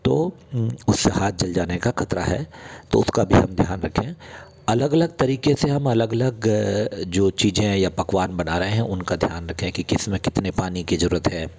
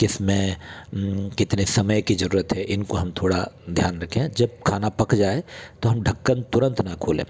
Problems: none marked